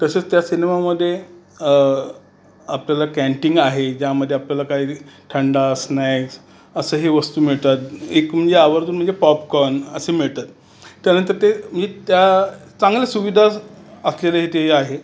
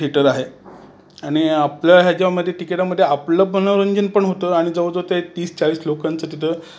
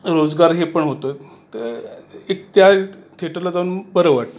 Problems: constant background noise, background conversations at intervals